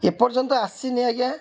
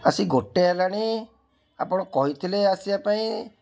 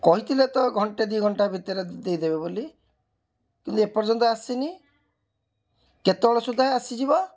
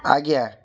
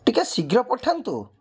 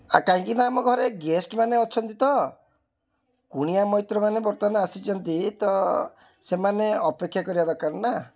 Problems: background sounds at intervals, background conversations at intervals